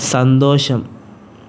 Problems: constant background noise